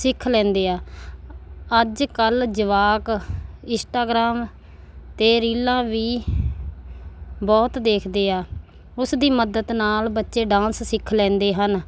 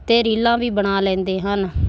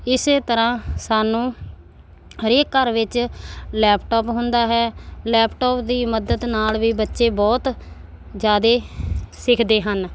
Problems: none marked